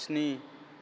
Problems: constant background noise